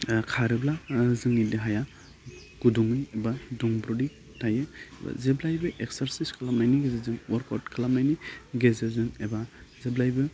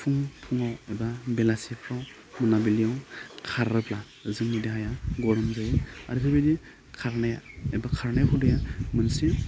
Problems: none marked